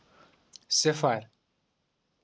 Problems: none marked